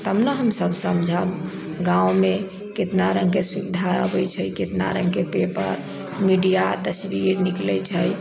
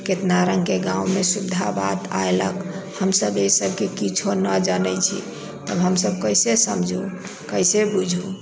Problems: background sounds at intervals